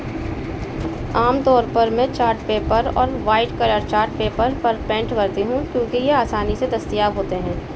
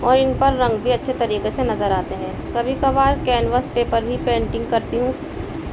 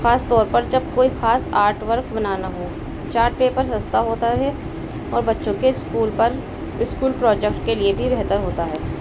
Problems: constant background noise